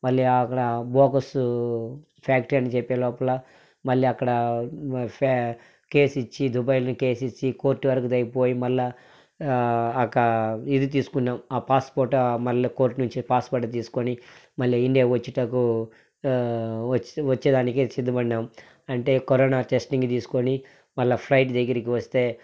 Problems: none marked